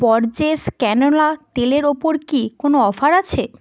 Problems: none marked